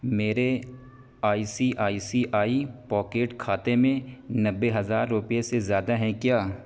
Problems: constant background noise